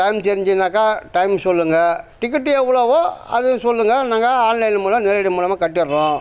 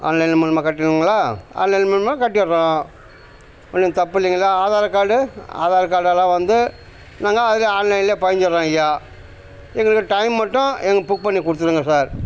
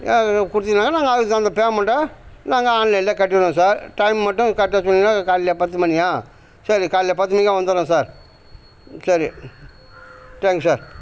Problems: constant background noise